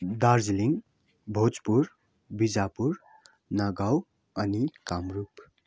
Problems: none marked